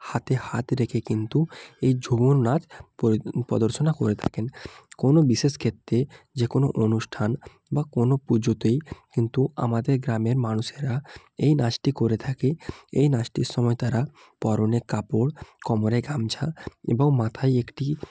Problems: background conversations at intervals